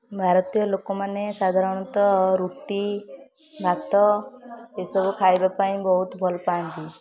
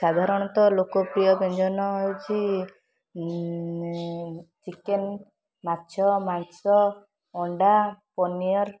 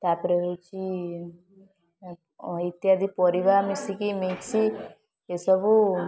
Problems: constant background noise, continuous background conversations